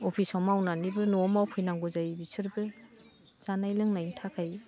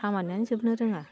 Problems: background conversations at intervals